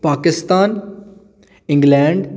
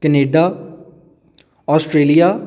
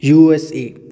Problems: none marked